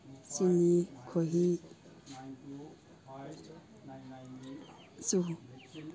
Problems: background conversations at intervals